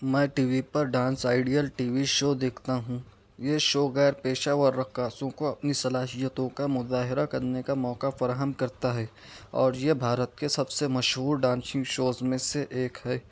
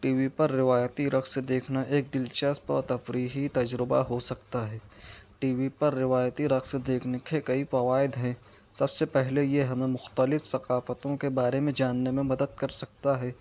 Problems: none marked